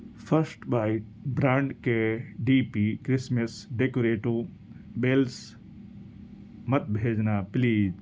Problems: none marked